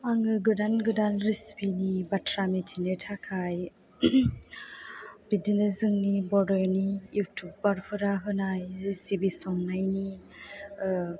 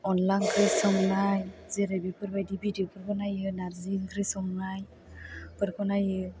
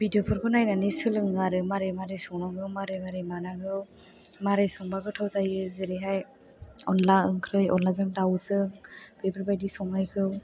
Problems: background sounds at intervals